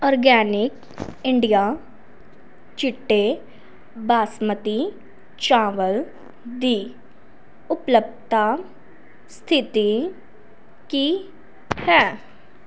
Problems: none marked